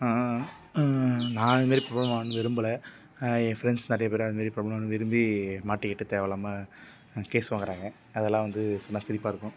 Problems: background sounds at intervals